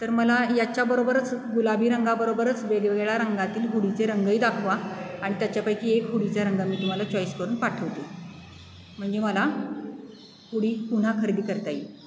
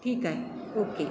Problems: none marked